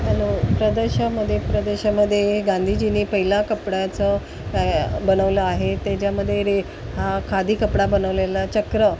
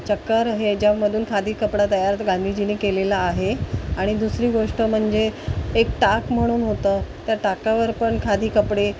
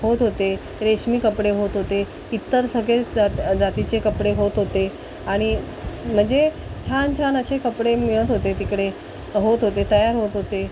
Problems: constant background noise